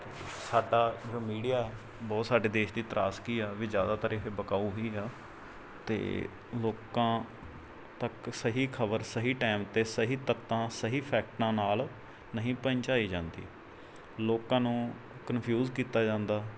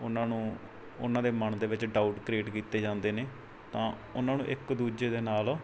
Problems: background sounds at intervals